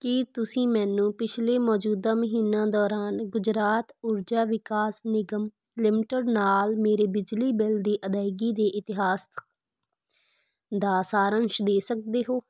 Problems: none marked